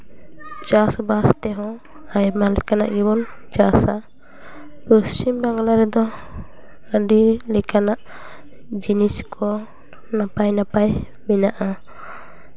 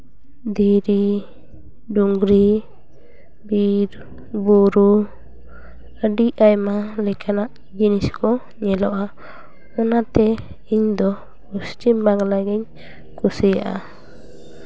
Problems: none marked